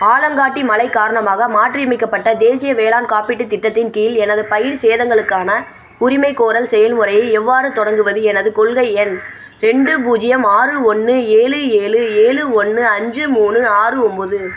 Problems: constant background noise